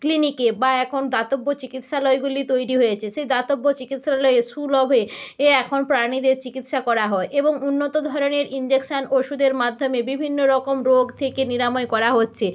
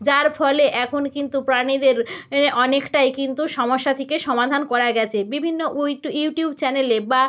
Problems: none marked